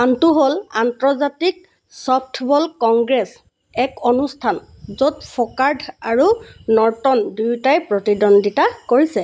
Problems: constant background noise